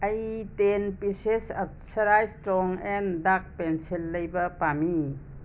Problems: none marked